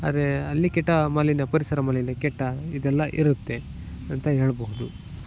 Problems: background sounds at intervals